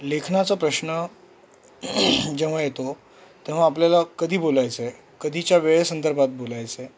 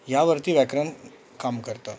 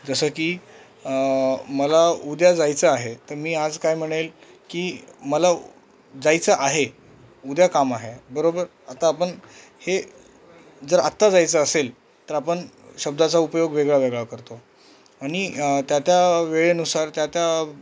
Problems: none marked